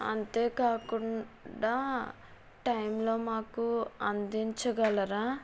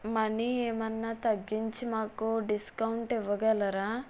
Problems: background sounds at intervals